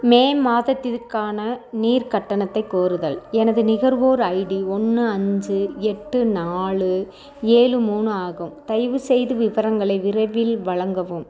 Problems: background conversations at intervals